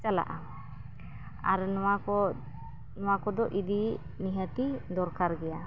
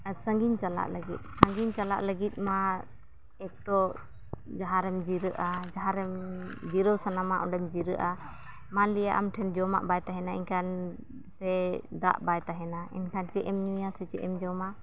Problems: background sounds at intervals